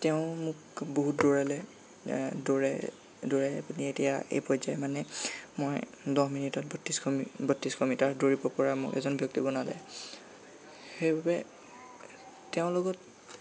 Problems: constant background noise